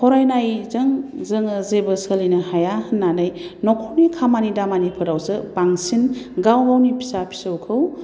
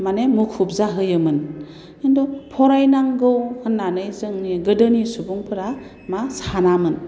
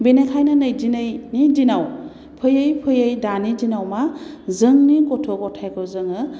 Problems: none marked